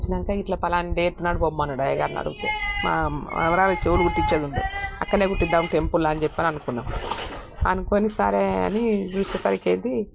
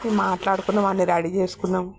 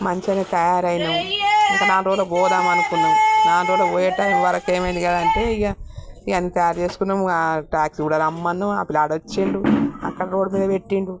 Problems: none marked